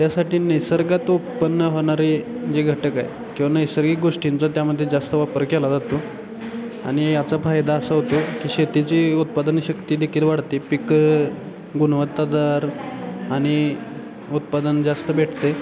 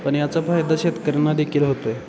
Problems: constant background noise, continuous background conversations